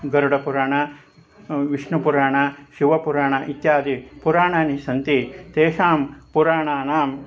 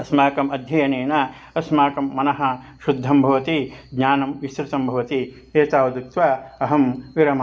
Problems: constant background noise